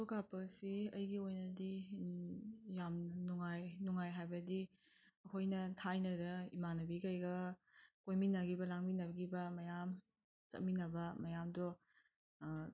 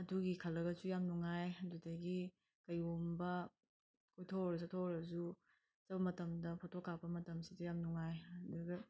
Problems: none marked